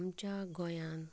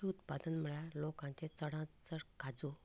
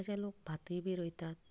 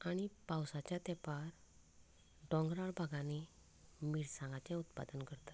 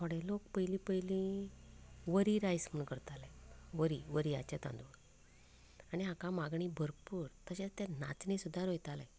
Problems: low volume